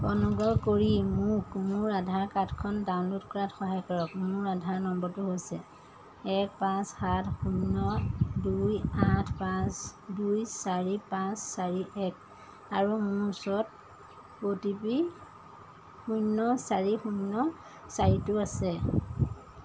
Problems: constant background noise